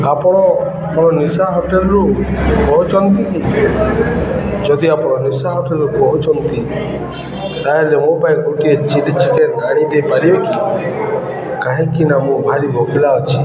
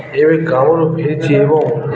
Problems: constant background noise, continuous background conversations